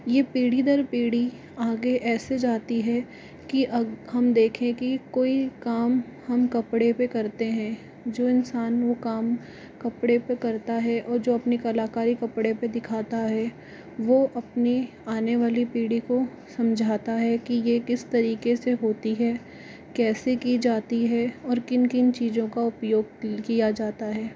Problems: constant background noise